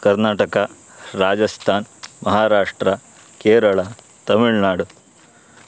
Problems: constant background noise